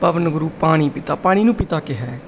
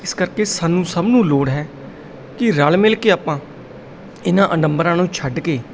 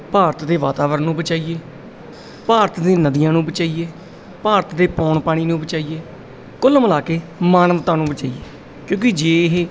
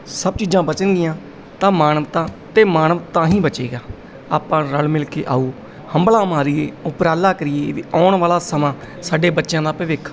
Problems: background sounds at intervals